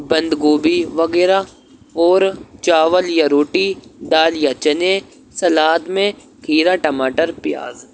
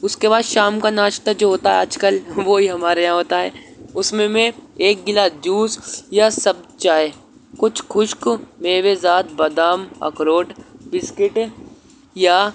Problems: constant background noise